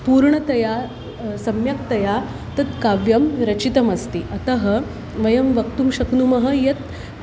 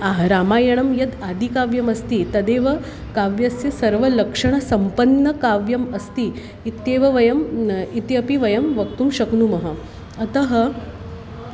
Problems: constant background noise